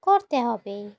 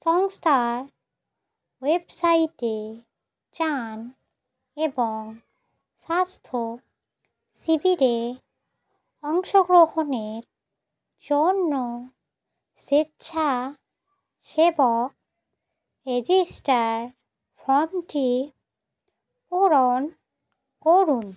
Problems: none marked